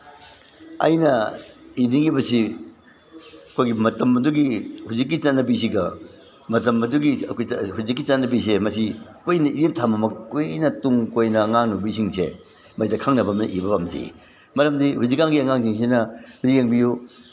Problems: none marked